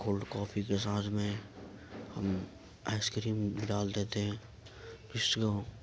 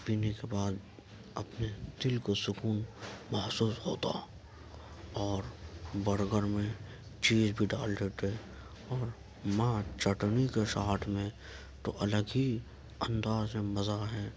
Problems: background sounds at intervals, background conversations at intervals